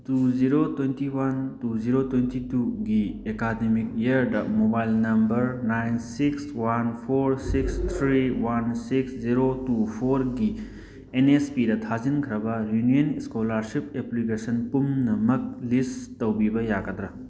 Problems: none marked